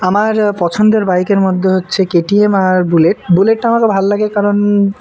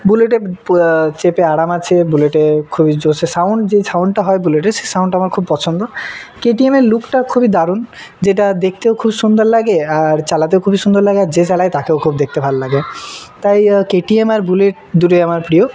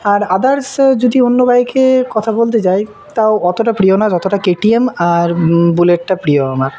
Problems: none marked